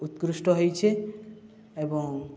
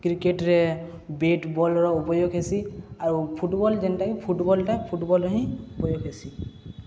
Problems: none marked